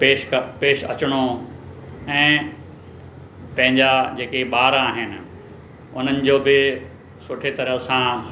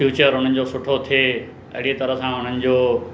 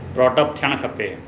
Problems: constant background noise